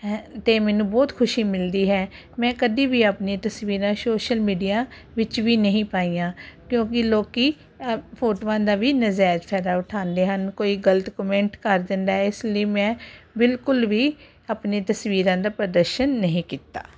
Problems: none marked